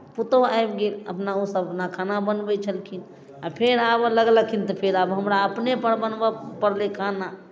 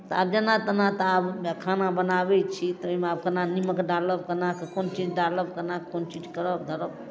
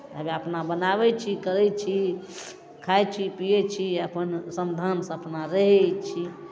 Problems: none marked